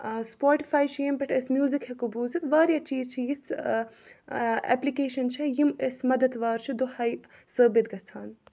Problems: background sounds at intervals